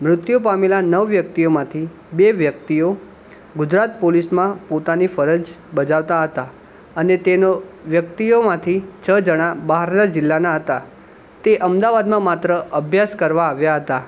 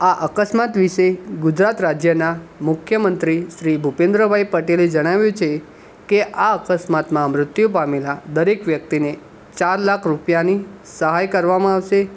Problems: none marked